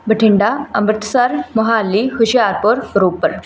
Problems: none marked